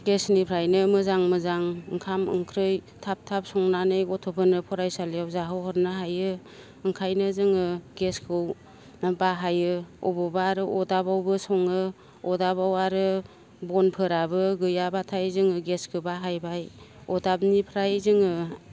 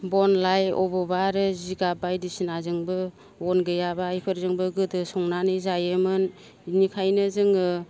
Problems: none marked